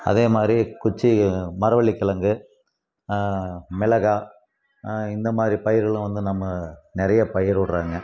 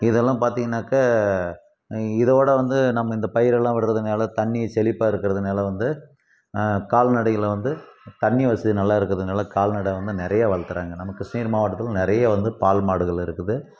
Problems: background sounds at intervals